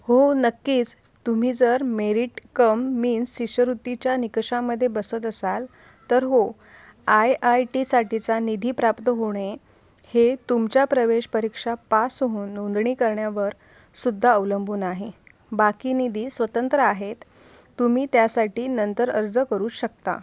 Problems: background sounds at intervals